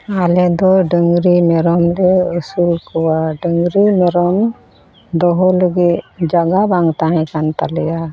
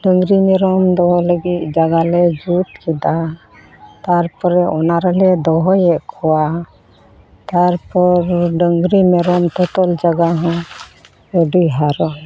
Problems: constant background noise